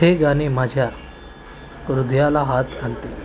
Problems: constant background noise